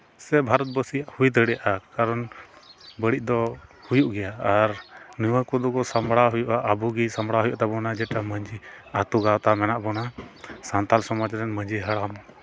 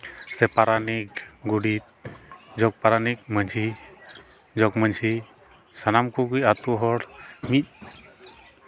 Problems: background sounds at intervals